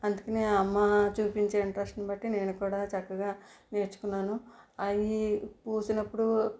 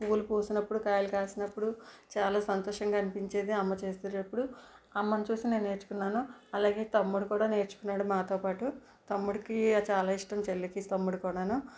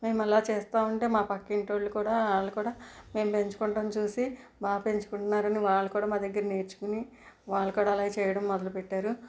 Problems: background sounds at intervals